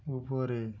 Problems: low volume